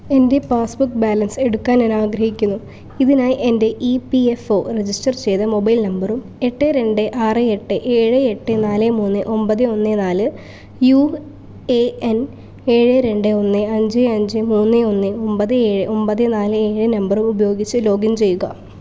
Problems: low volume